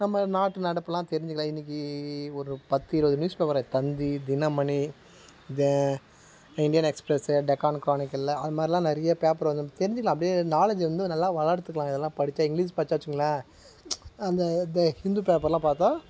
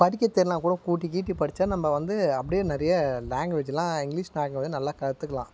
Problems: constant background noise